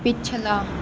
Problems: constant background noise